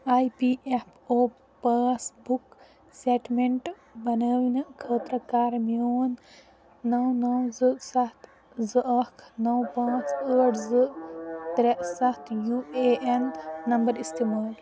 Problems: background sounds at intervals, background conversations at intervals